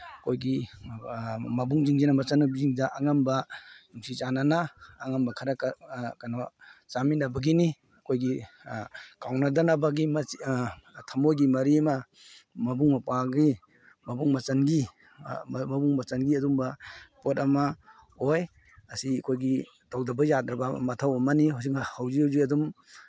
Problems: none marked